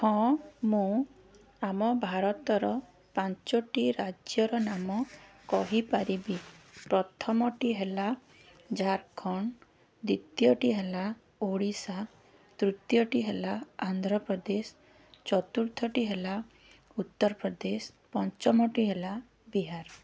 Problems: background sounds at intervals